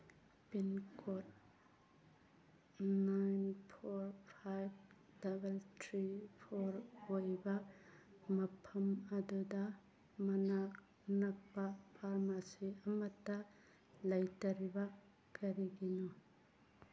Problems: background sounds at intervals